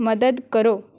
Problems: background sounds at intervals